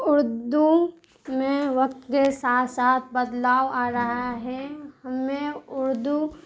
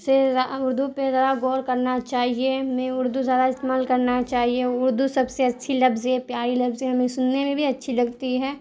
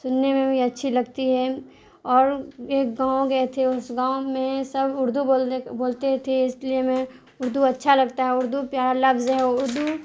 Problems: constant background noise